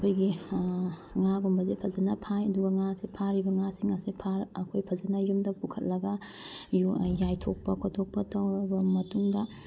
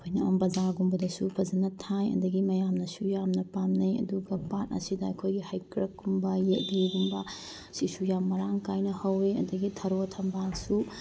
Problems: none marked